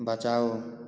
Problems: none marked